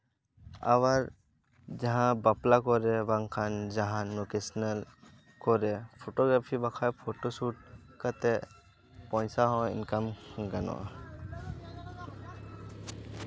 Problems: constant background noise